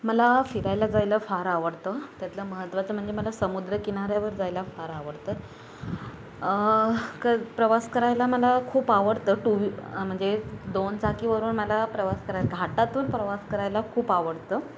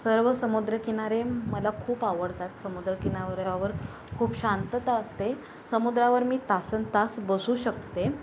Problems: none marked